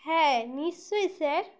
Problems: constant background noise